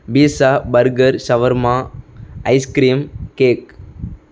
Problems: none marked